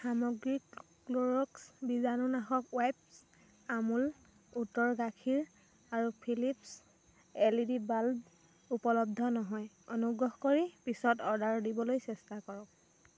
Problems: constant background noise